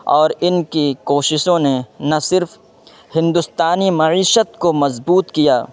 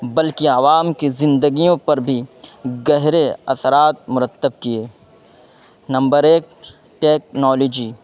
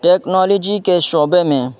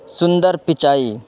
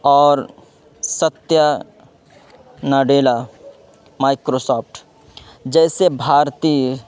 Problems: constant background noise